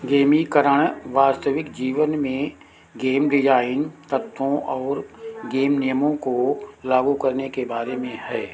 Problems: background sounds at intervals